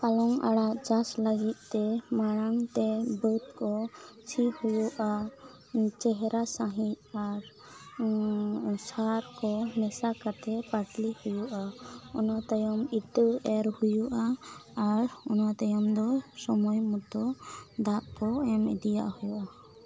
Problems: low volume